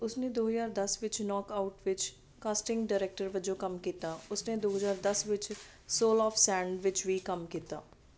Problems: none marked